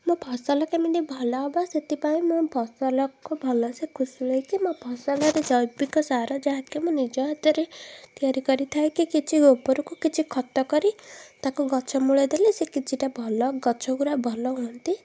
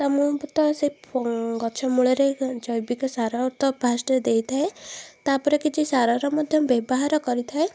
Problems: background sounds at intervals